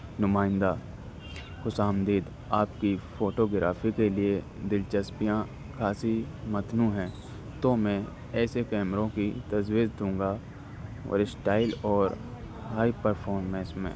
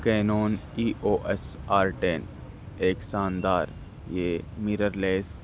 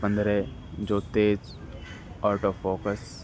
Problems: constant background noise